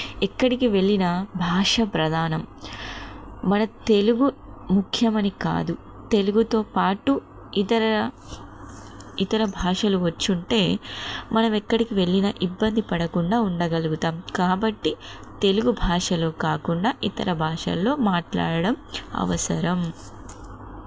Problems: constant background noise